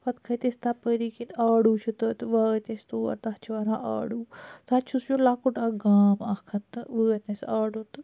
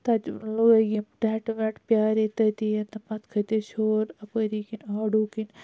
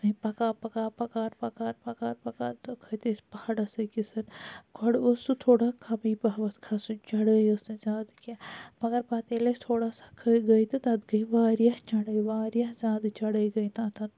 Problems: none marked